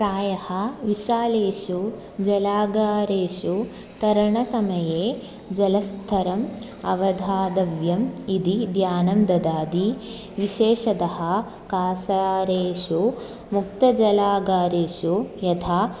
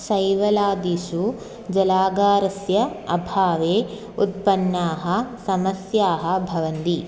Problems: constant background noise